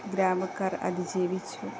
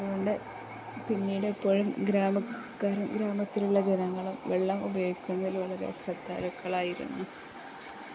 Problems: constant background noise, low volume